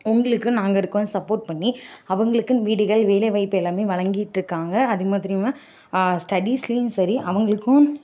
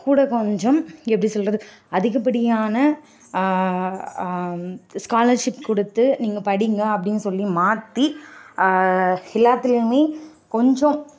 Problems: none marked